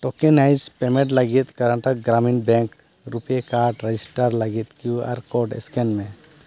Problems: none marked